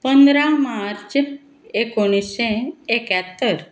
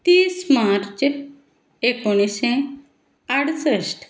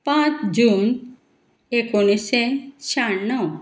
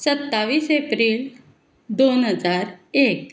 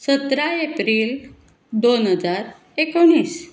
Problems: none marked